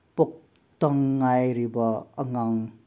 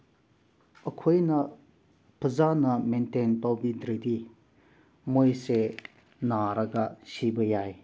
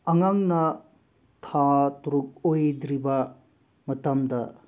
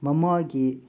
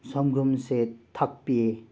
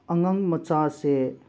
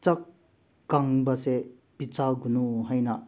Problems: background sounds at intervals